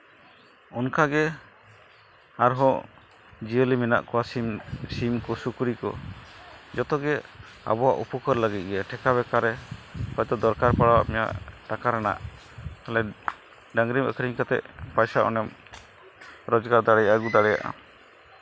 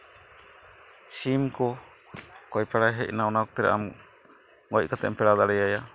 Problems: constant background noise